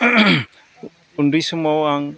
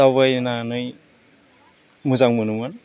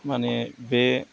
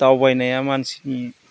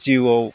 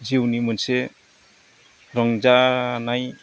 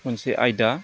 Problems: constant background noise